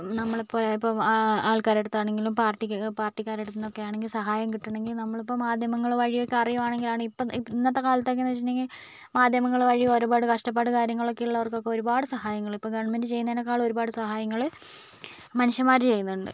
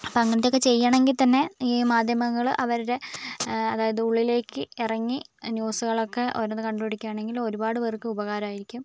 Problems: background sounds at intervals